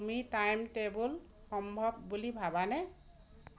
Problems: constant background noise